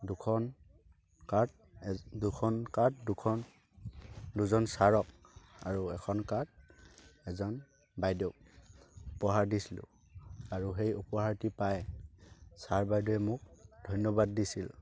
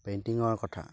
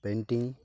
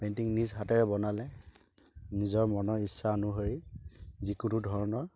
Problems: constant background noise, continuous background conversations